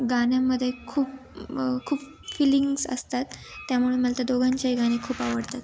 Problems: background sounds at intervals